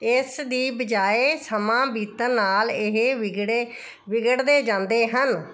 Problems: none marked